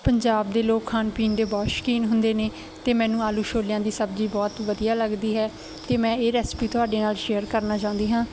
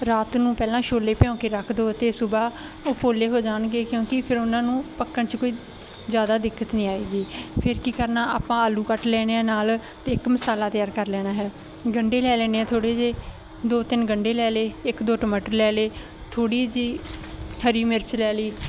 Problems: none marked